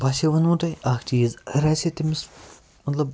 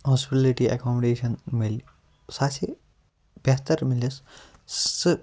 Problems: none marked